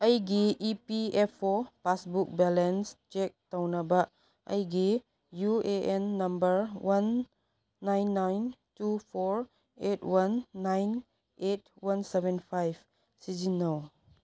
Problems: none marked